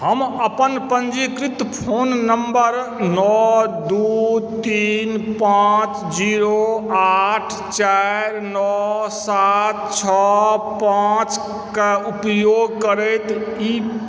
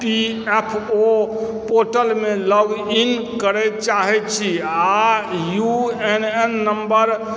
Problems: background sounds at intervals